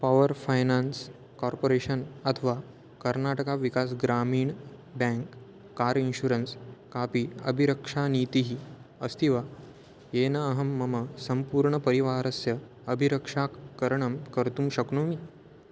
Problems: none marked